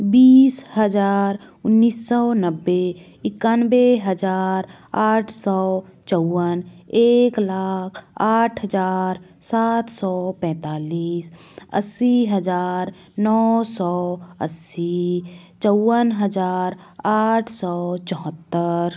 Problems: none marked